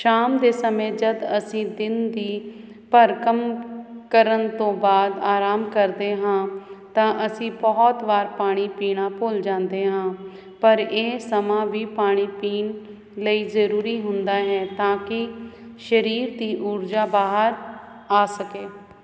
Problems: none marked